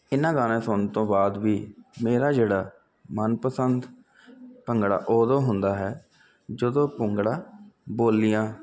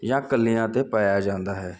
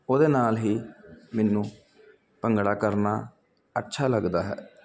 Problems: constant background noise